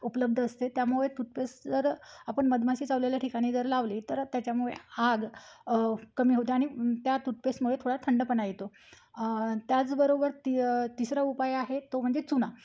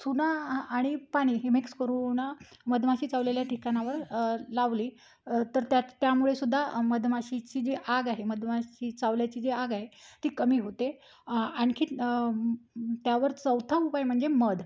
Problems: background sounds at intervals